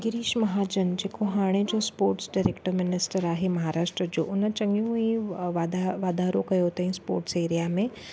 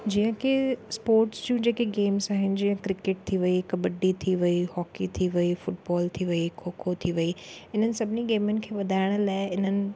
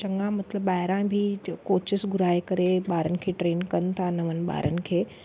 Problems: none marked